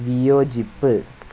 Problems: constant background noise